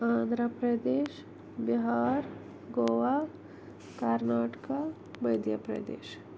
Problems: constant background noise, low volume